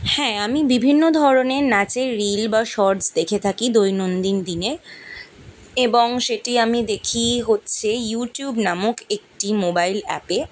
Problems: background sounds at intervals